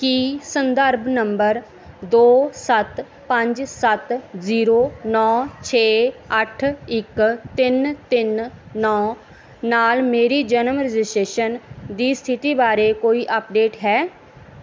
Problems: none marked